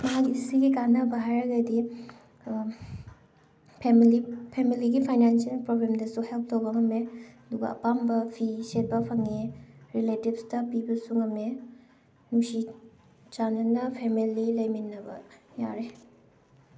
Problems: background sounds at intervals